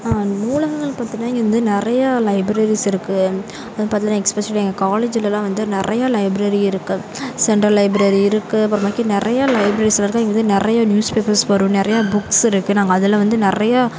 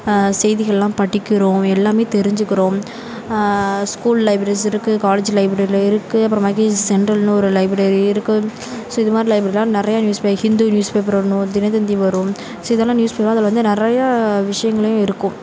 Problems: constant background noise, background conversations at intervals